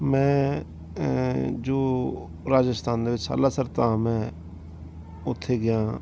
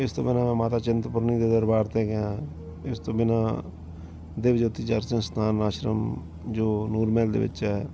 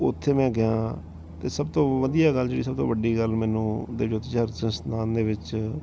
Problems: background sounds at intervals